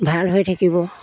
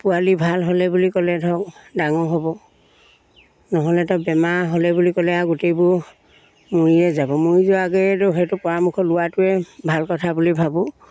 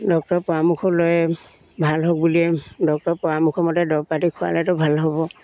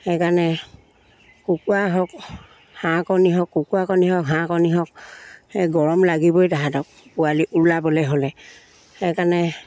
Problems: background sounds at intervals